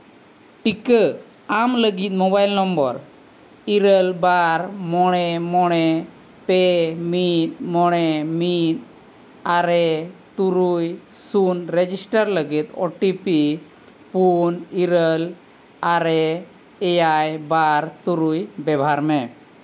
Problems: constant background noise